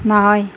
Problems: background sounds at intervals